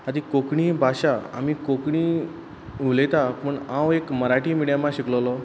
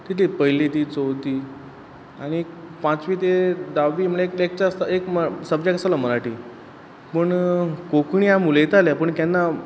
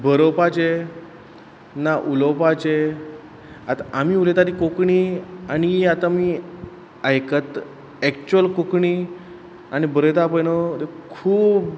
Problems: constant background noise